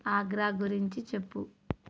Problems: none marked